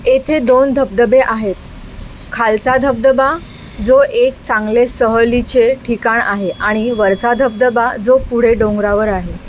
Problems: constant background noise